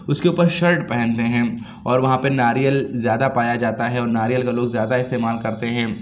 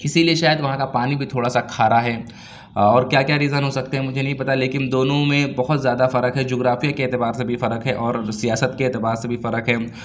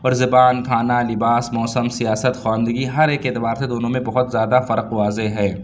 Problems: background sounds at intervals